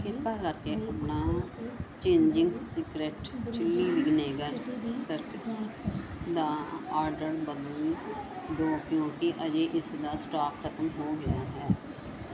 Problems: background conversations at intervals